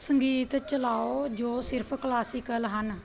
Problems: continuous background conversations